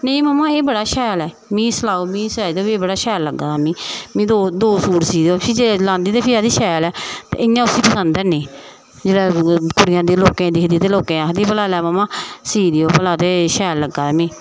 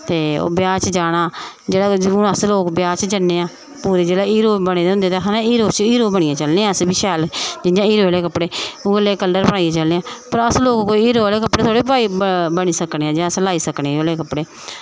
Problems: none marked